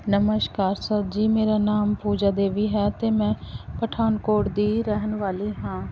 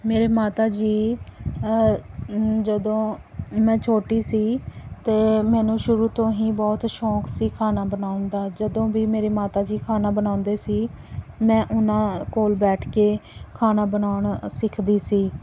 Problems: background sounds at intervals